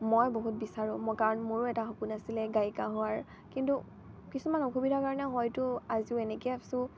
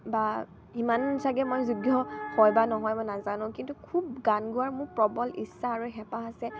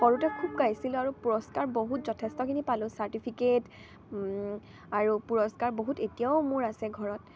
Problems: constant background noise, background conversations at intervals